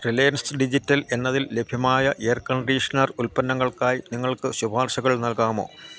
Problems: constant background noise, low volume